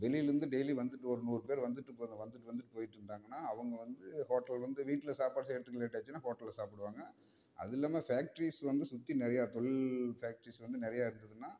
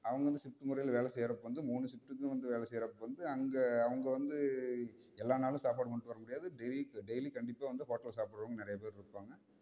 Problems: none marked